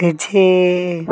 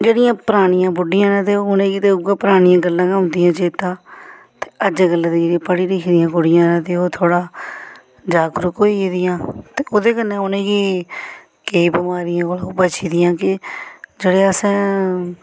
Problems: background sounds at intervals